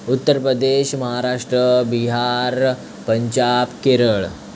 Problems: constant background noise